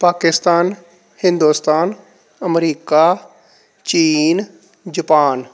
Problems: none marked